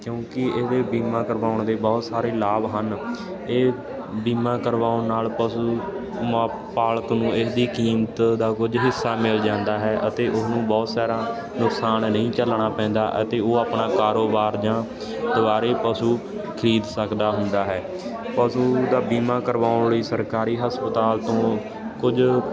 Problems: constant background noise